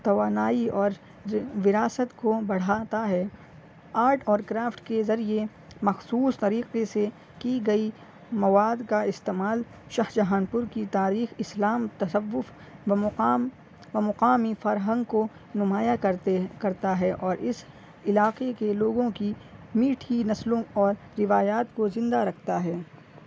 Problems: none marked